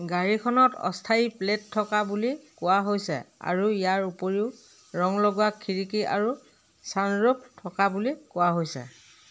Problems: constant background noise